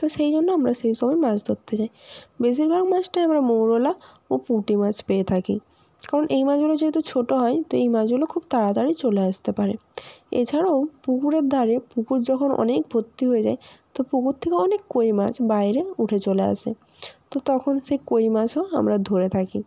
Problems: constant background noise